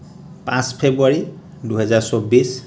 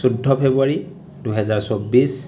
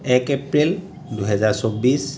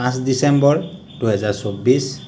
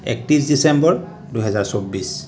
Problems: none marked